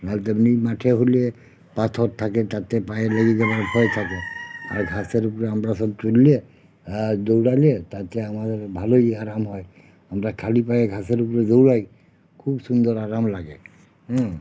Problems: constant background noise